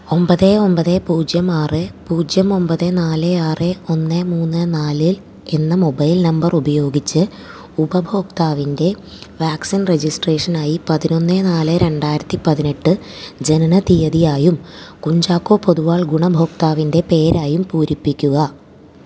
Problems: background sounds at intervals